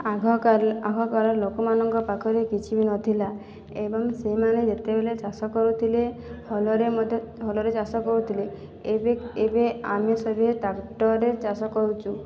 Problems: none marked